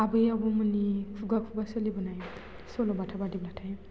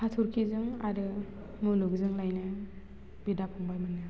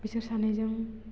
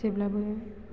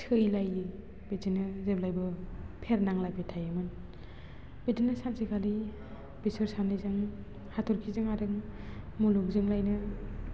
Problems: constant background noise